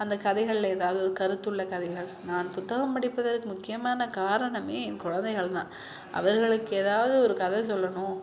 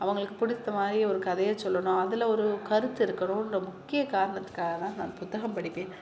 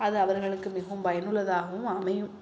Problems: continuous background conversations